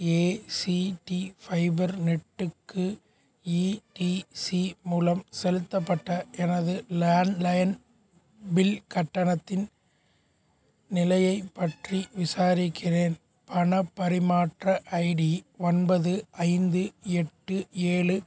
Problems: none marked